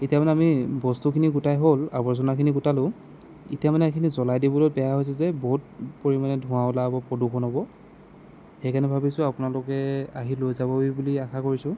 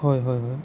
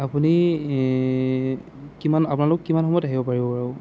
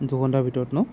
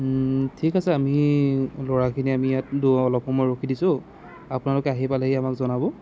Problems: none marked